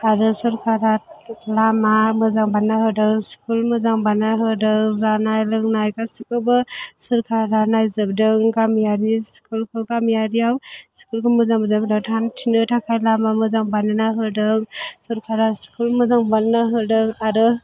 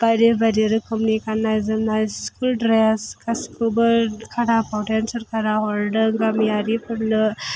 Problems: background sounds at intervals